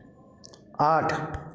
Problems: background sounds at intervals